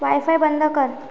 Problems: background sounds at intervals